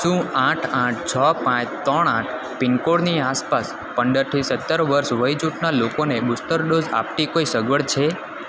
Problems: constant background noise